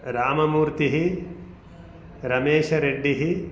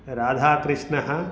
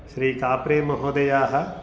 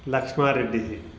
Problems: constant background noise